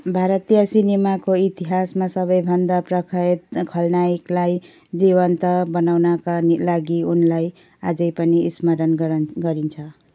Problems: background sounds at intervals